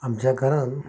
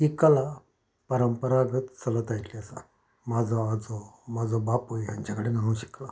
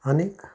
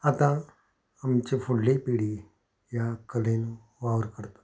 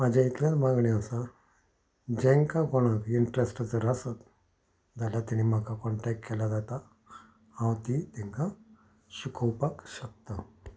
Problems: background sounds at intervals